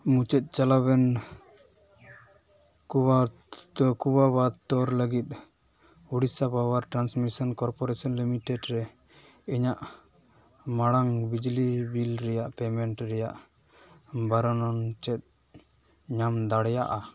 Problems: none marked